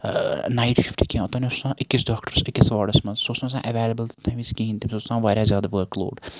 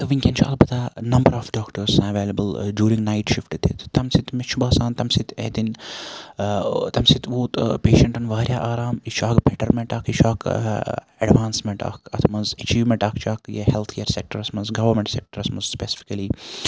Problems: constant background noise